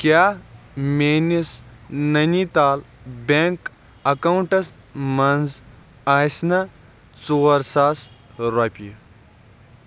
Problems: background sounds at intervals